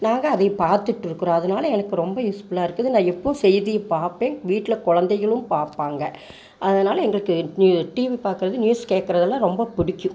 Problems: constant background noise